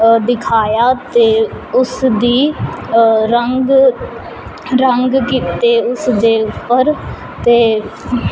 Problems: constant background noise